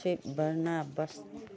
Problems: low volume